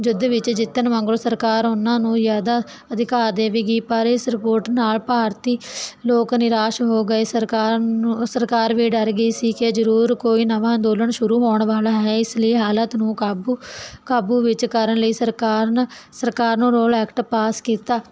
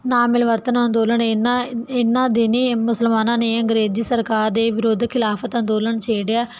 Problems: none marked